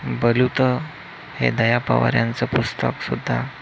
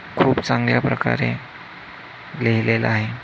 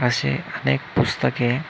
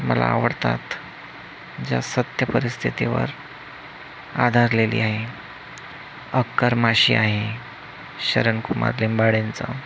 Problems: constant background noise